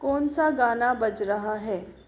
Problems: constant background noise